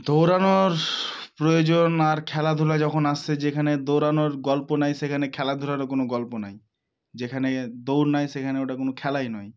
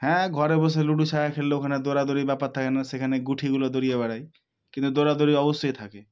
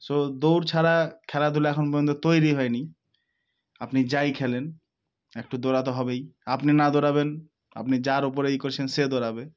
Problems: none marked